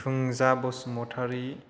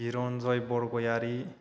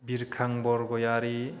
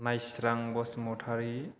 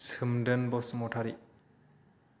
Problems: none marked